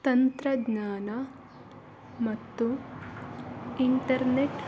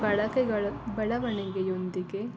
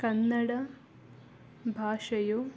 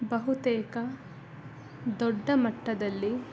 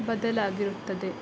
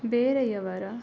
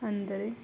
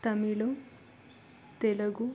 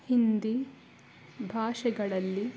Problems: background sounds at intervals